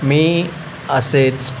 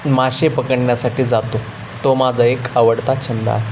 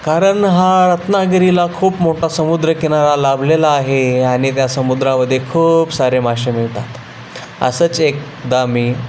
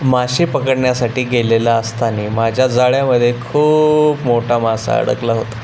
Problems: constant background noise